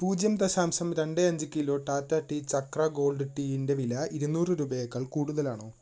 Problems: background sounds at intervals